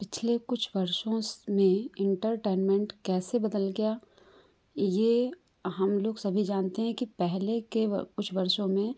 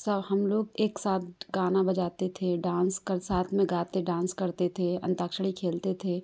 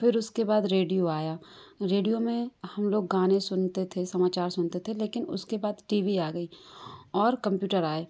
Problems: constant background noise